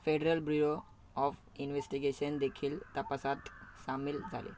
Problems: background sounds at intervals